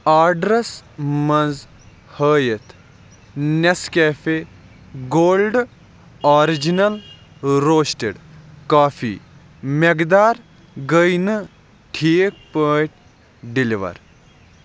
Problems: none marked